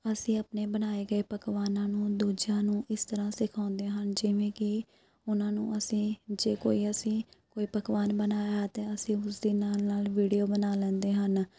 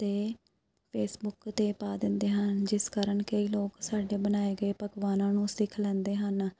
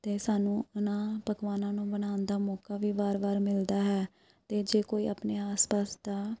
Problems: none marked